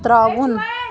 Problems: constant background noise, background conversations at intervals